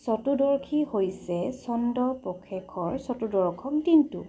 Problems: none marked